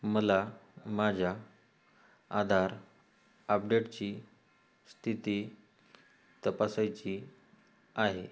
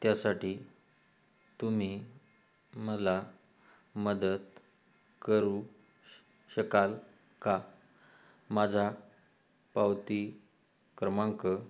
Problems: background sounds at intervals